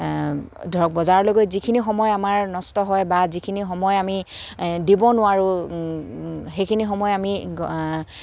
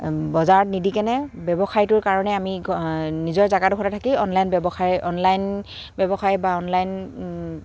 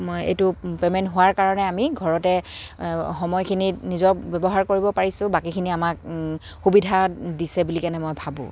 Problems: constant background noise, background conversations at intervals